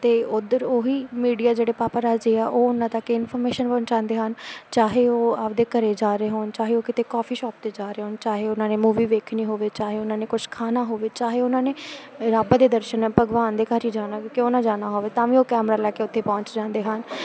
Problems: constant background noise